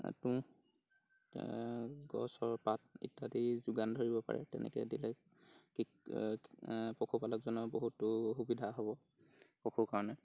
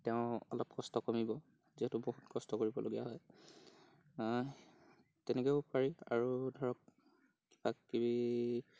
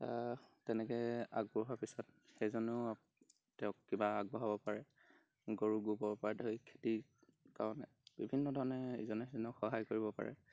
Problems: background sounds at intervals